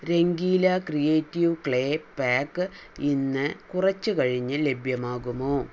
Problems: none marked